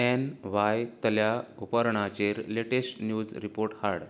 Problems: none marked